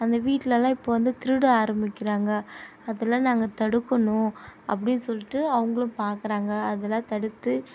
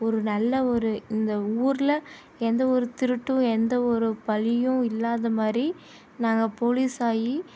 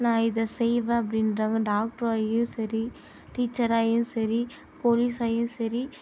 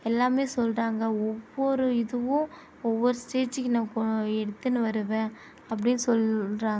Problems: constant background noise